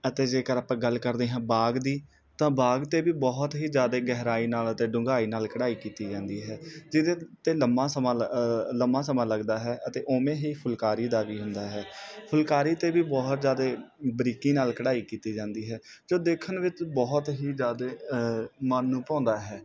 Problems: background sounds at intervals